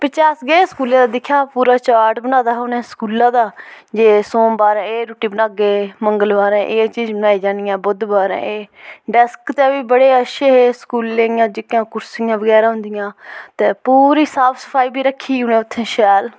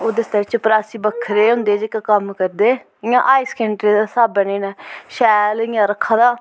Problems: none marked